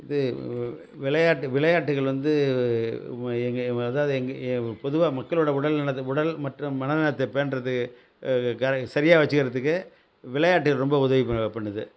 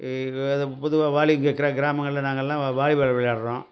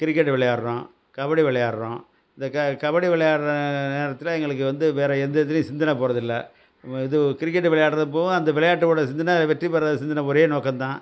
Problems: constant background noise